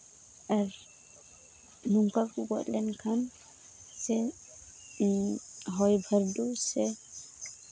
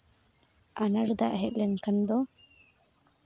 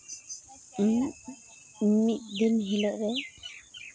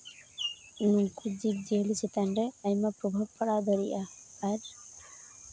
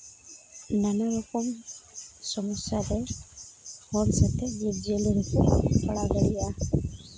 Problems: constant background noise